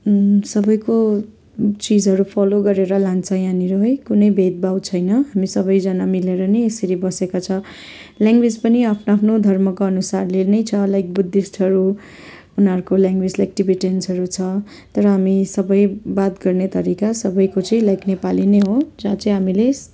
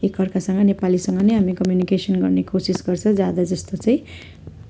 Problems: constant background noise